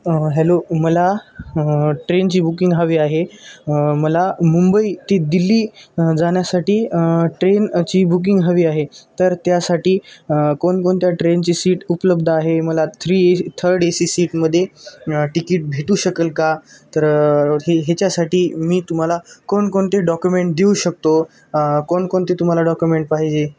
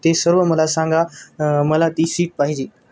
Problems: background sounds at intervals